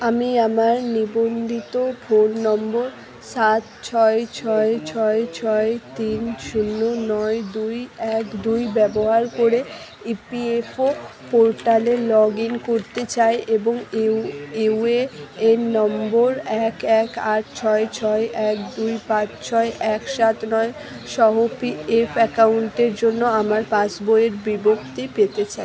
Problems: continuous background conversations